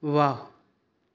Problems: none marked